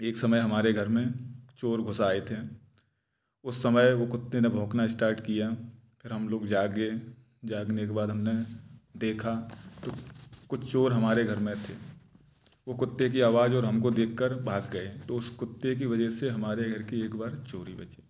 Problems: none marked